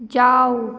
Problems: none marked